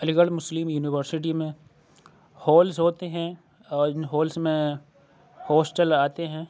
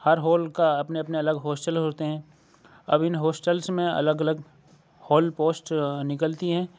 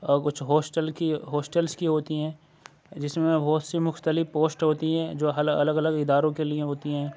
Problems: none marked